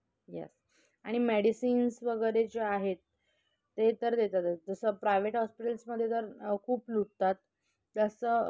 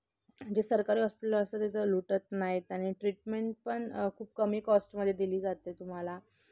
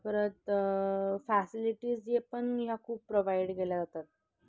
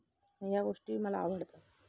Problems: none marked